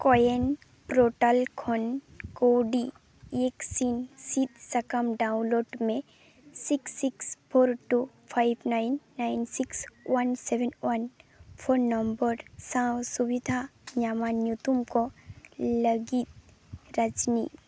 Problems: background sounds at intervals